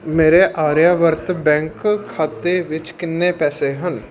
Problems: background sounds at intervals